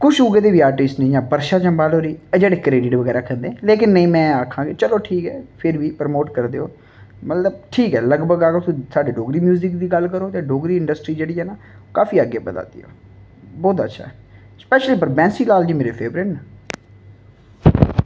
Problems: none marked